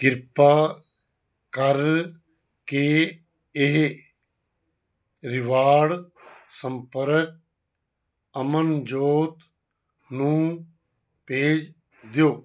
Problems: none marked